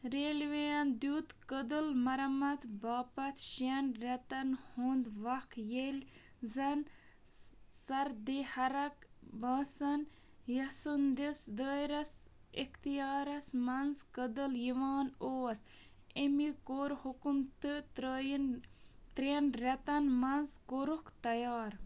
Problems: background sounds at intervals